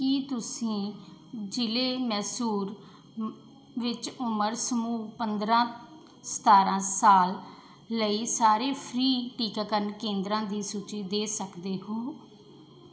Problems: background sounds at intervals